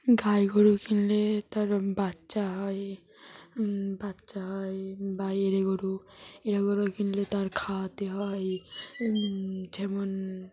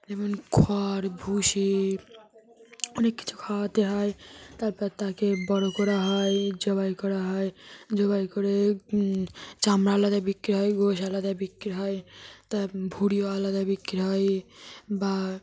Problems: constant background noise